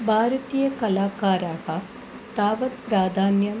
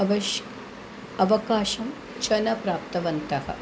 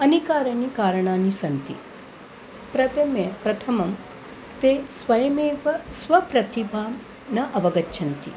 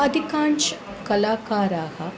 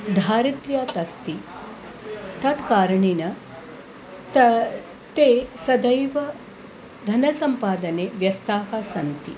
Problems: constant background noise, background conversations at intervals